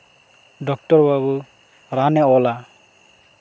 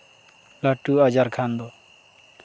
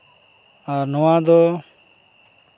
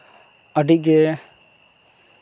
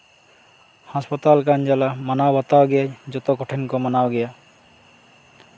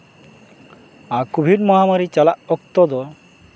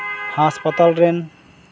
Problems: none marked